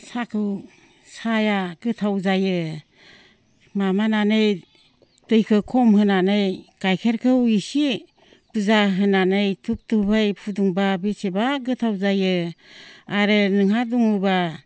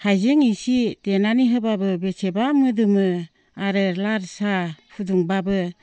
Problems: low volume